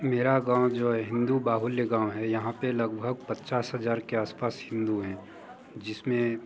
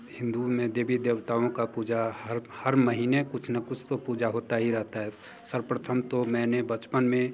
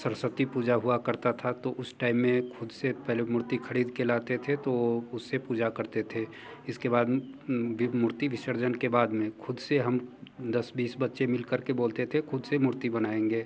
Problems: constant background noise, background conversations at intervals